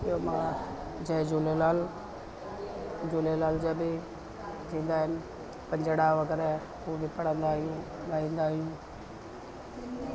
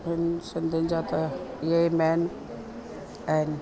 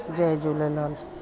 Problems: constant background noise